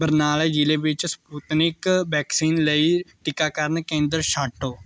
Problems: none marked